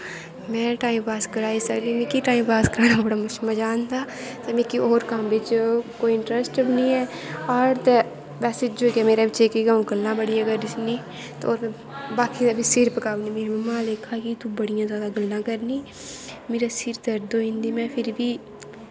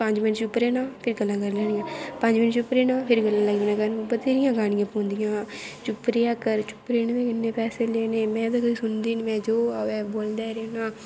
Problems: constant background noise